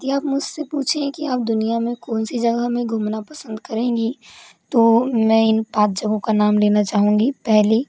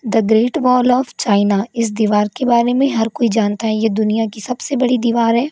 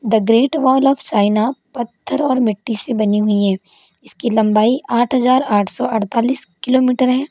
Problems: constant background noise